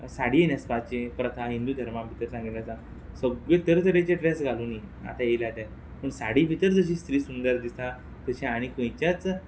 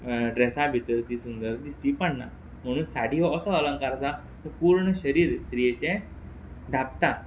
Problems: background sounds at intervals